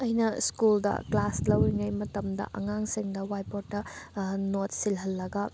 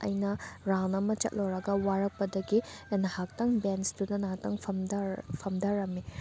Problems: none marked